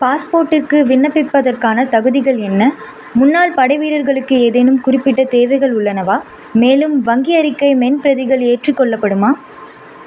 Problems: constant background noise